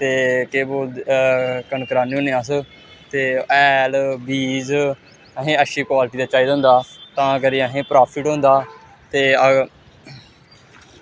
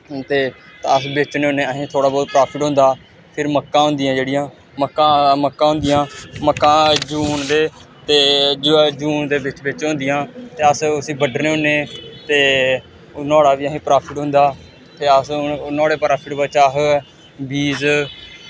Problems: constant background noise